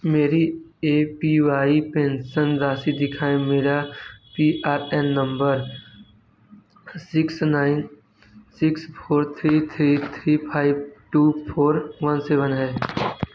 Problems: constant background noise